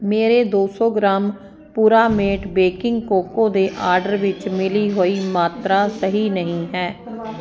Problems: constant background noise